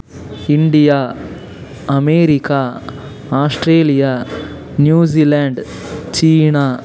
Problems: constant background noise